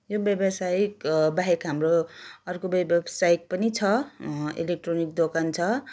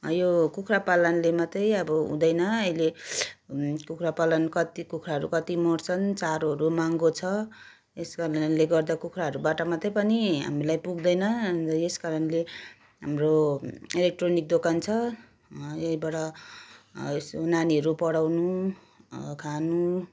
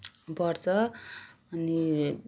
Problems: background sounds at intervals